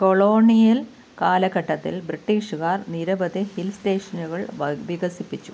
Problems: background sounds at intervals